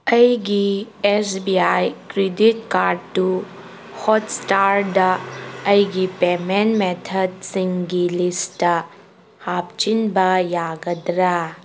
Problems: background sounds at intervals